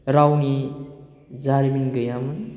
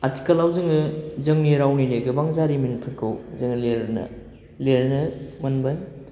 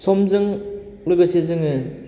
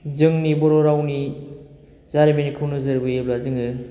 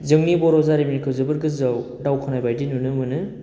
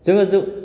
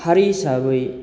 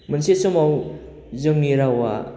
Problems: constant background noise